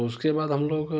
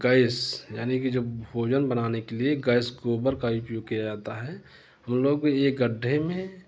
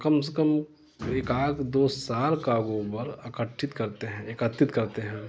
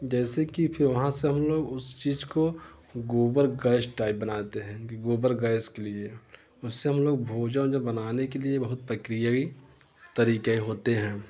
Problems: constant background noise